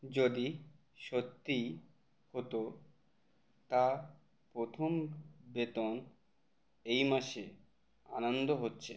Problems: none marked